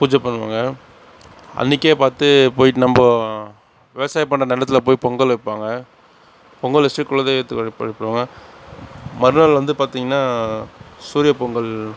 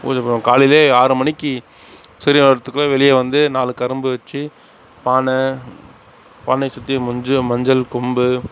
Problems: none marked